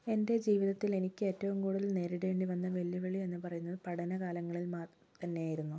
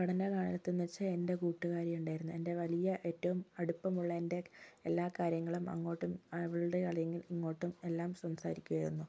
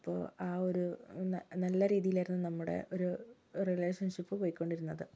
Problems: low volume